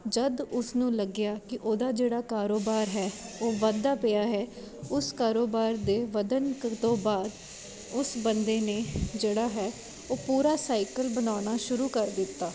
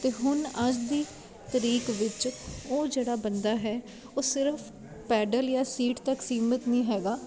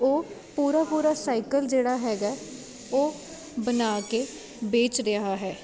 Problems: constant background noise